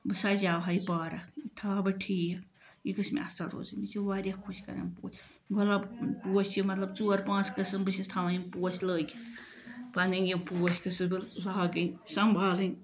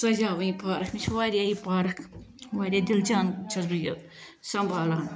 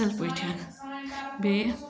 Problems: background sounds at intervals